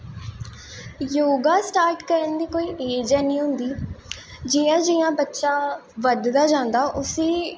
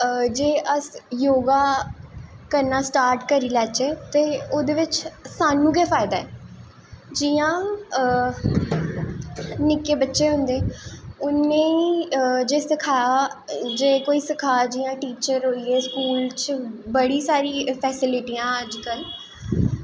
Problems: echo